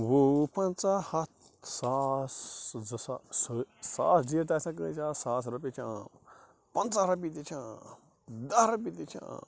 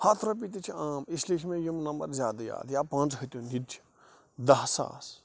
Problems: constant background noise